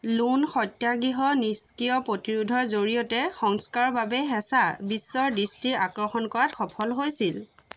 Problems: constant background noise